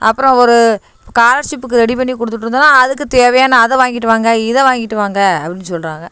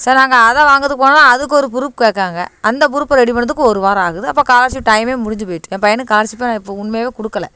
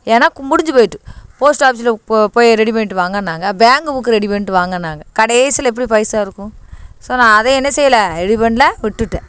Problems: constant background noise